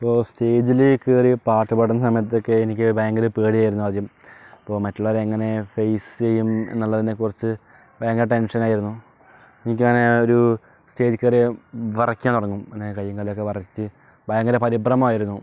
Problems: none marked